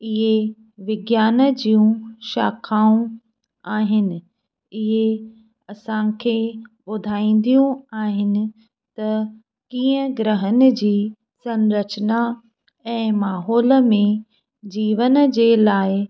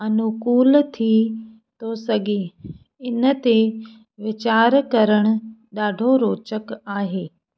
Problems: none marked